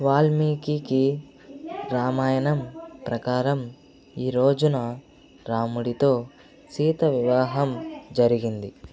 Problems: constant background noise, background conversations at intervals